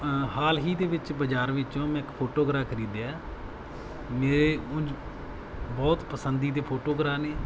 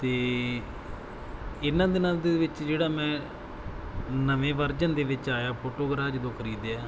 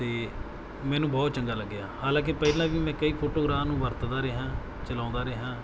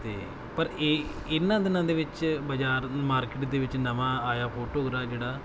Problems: background sounds at intervals